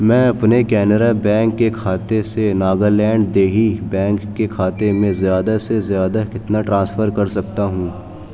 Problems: background sounds at intervals, background conversations at intervals